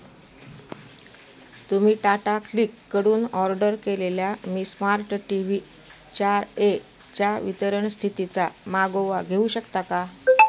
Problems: constant background noise, continuous background conversations